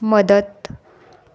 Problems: constant background noise